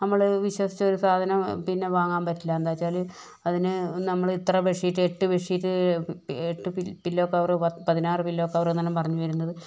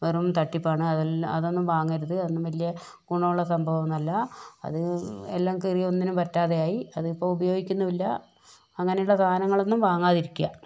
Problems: none marked